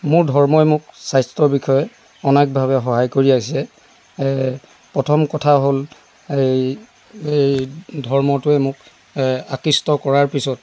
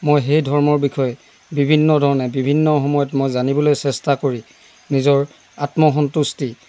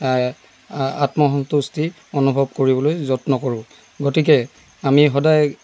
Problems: none marked